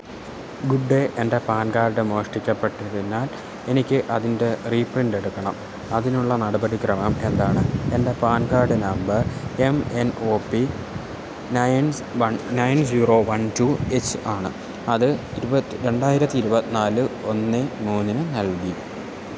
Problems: constant background noise, low volume